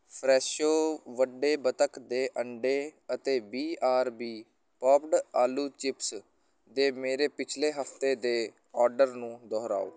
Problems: none marked